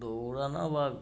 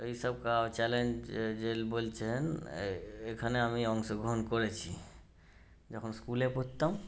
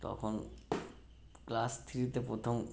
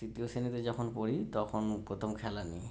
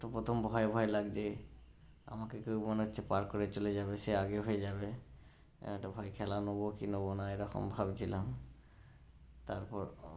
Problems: background sounds at intervals